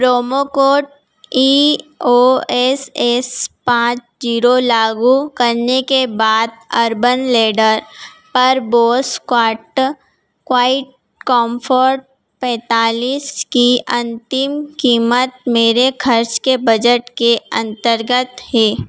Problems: background sounds at intervals